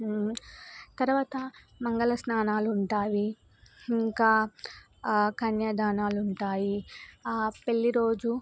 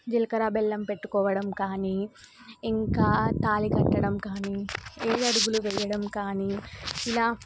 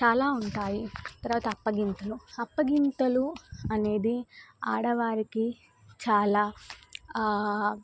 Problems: none marked